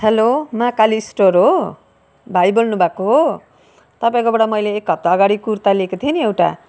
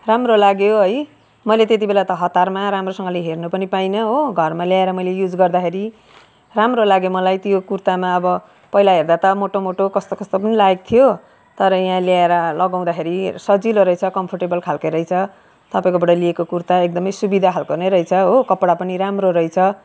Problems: background sounds at intervals, background conversations at intervals